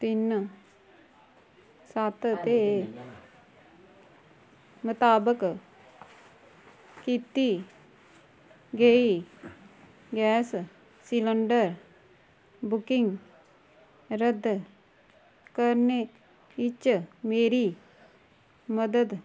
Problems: low volume